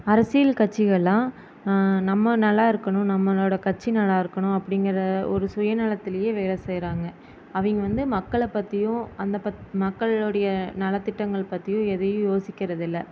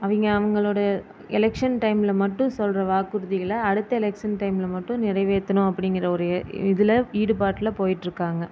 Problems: constant background noise